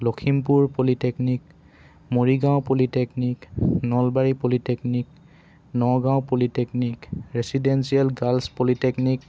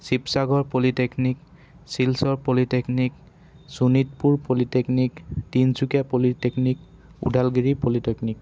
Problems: background sounds at intervals